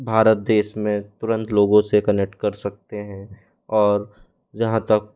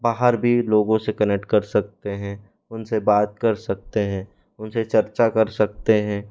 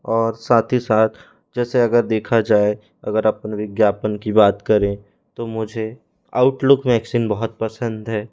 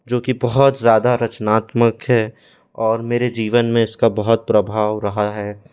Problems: background sounds at intervals